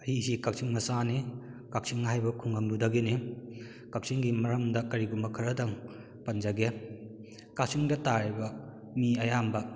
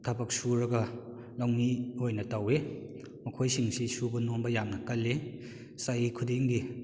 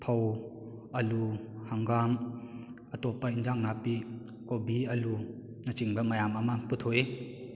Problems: echo